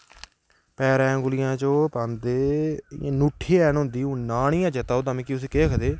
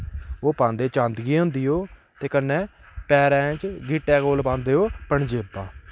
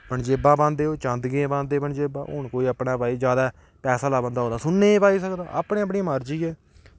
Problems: background sounds at intervals